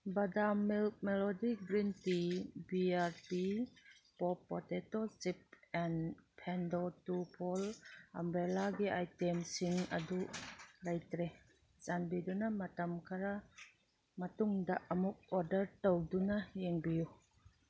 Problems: none marked